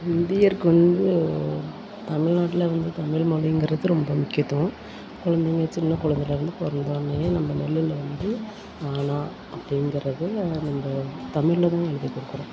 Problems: constant background noise